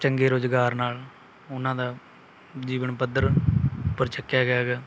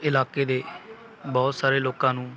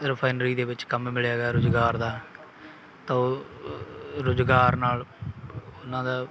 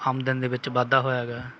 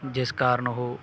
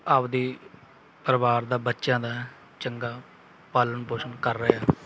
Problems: background sounds at intervals, background conversations at intervals